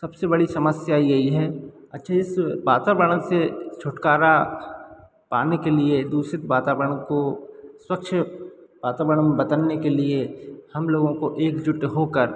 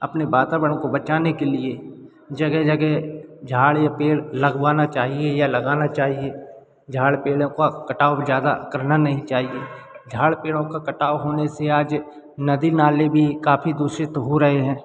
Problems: none marked